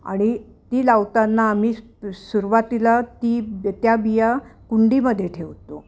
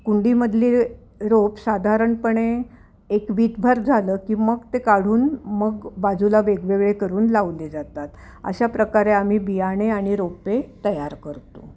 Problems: none marked